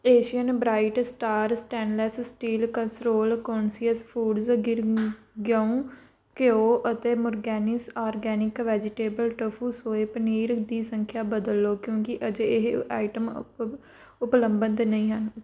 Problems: background sounds at intervals